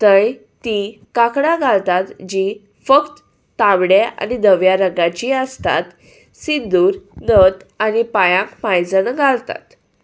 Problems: none marked